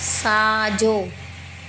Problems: constant background noise, echo